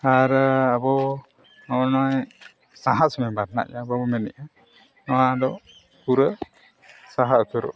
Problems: constant background noise